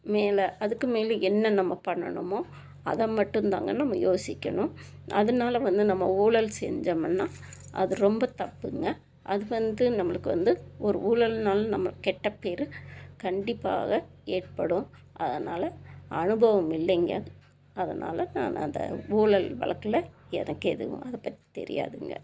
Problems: constant background noise